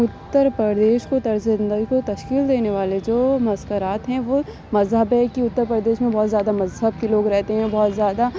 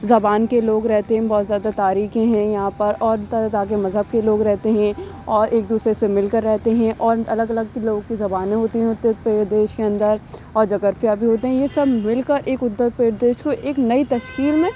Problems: constant background noise